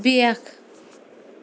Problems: constant background noise